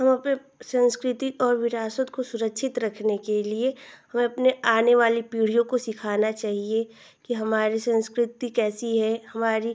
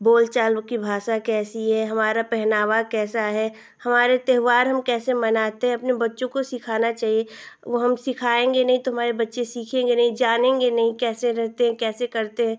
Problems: constant background noise